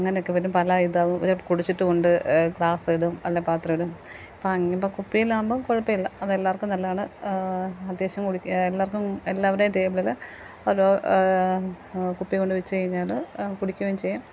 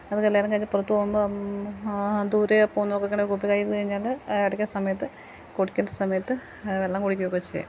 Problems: none marked